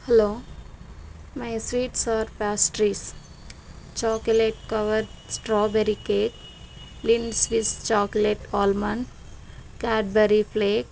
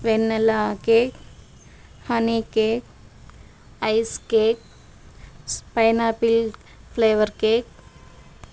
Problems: constant background noise